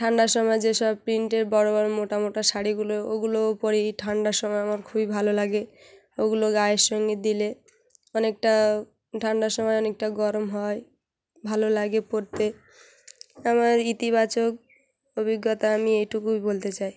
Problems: background sounds at intervals, background conversations at intervals